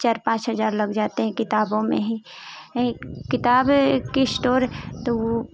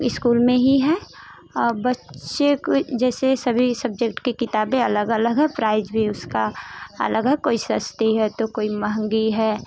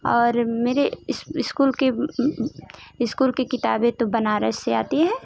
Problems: constant background noise